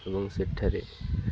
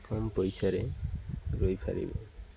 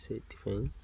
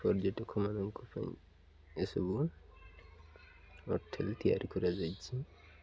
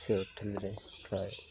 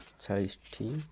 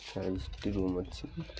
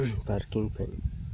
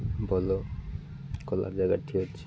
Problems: none marked